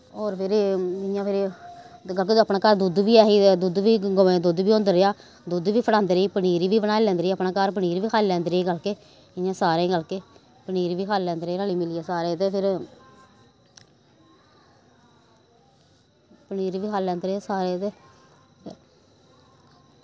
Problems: none marked